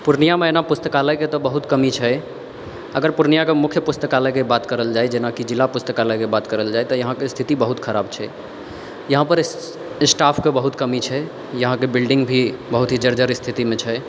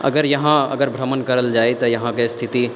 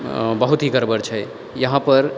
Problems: none marked